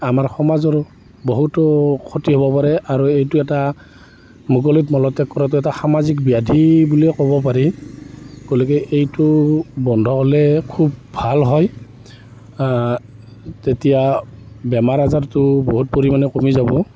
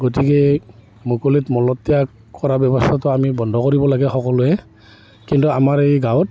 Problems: constant background noise